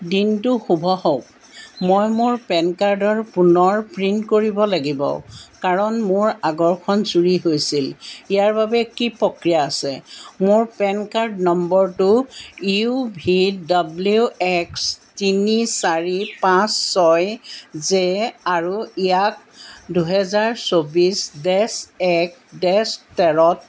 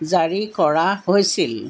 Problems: background sounds at intervals